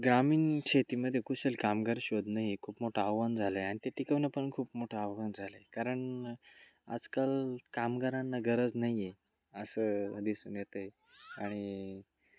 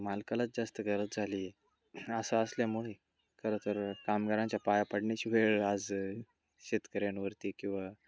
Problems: constant background noise, low volume